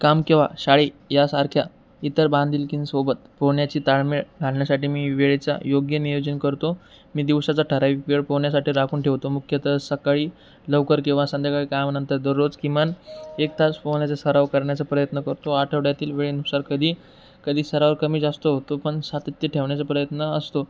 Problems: constant background noise